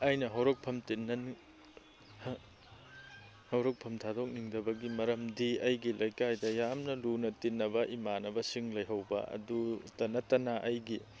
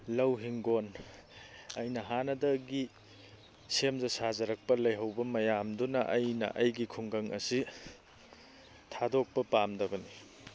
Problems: background sounds at intervals, low volume